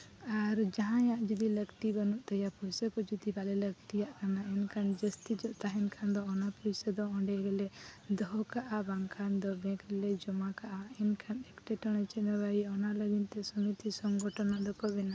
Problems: background sounds at intervals